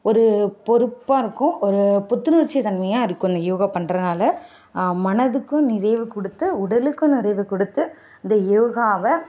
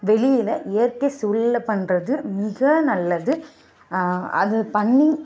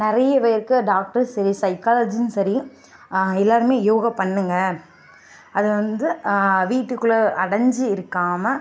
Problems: background sounds at intervals